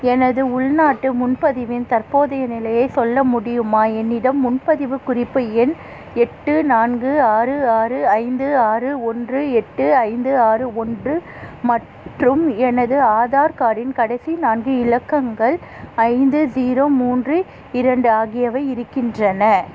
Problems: constant background noise